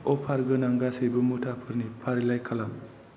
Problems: constant background noise